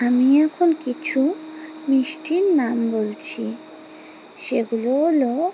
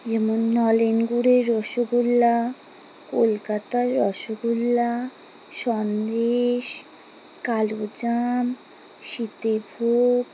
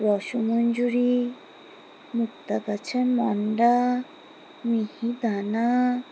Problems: background sounds at intervals